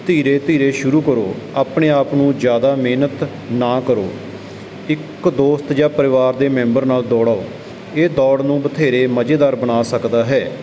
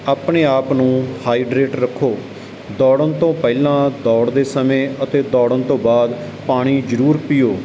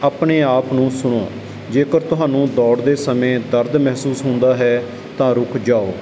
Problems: none marked